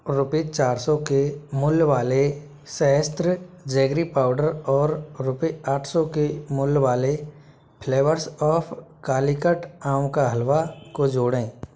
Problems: background sounds at intervals